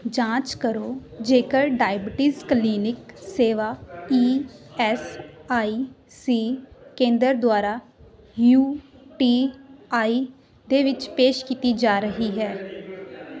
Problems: continuous background conversations